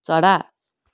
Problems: none marked